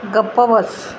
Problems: none marked